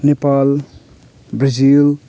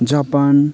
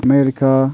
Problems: background conversations at intervals